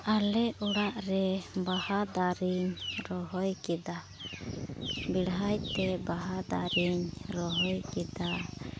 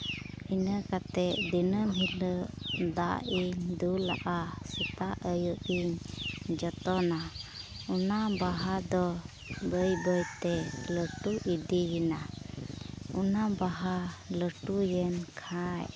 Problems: none marked